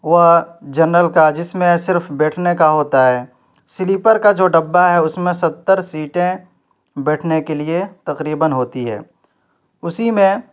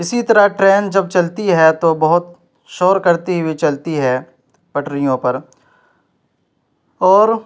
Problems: none marked